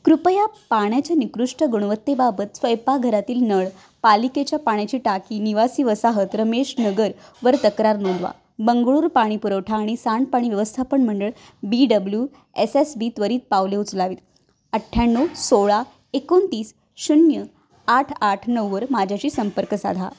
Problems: constant background noise